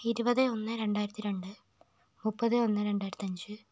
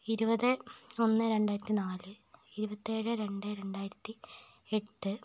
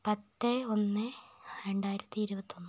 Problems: none marked